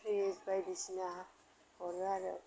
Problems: low volume